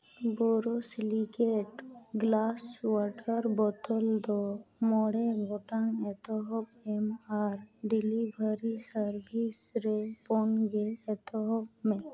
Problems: none marked